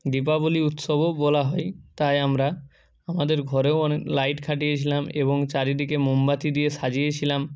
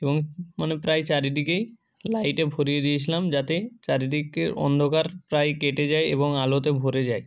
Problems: background sounds at intervals, continuous background conversations